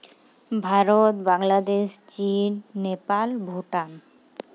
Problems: none marked